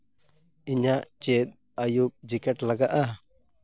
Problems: none marked